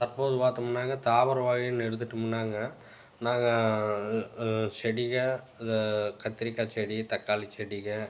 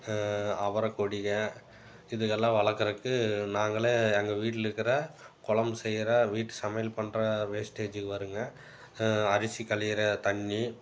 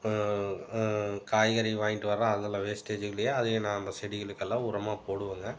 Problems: background sounds at intervals